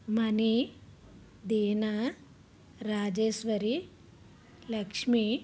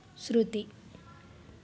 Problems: background conversations at intervals